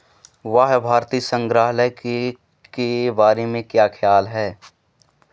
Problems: none marked